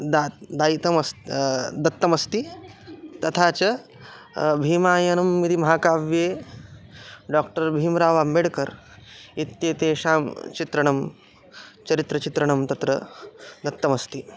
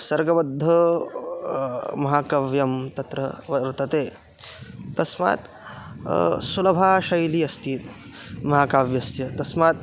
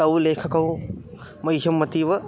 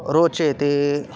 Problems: none marked